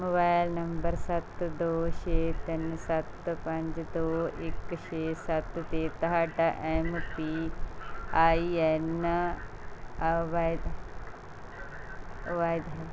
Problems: constant background noise, background conversations at intervals